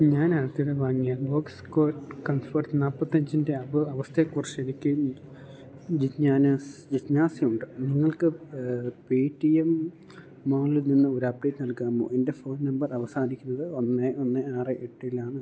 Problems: none marked